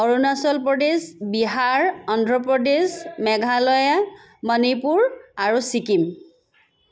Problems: none marked